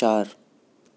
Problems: constant background noise